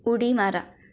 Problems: background sounds at intervals